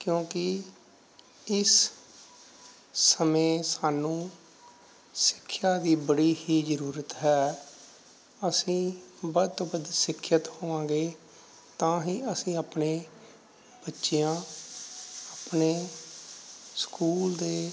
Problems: none marked